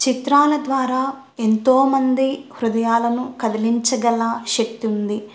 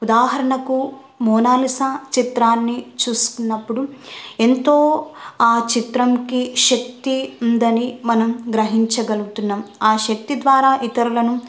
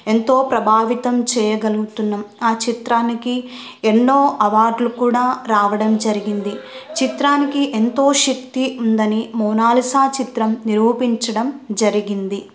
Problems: none marked